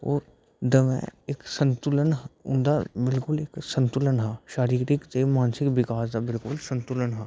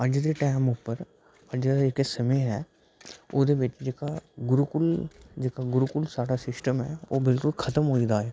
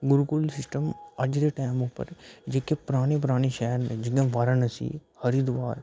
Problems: background sounds at intervals, low volume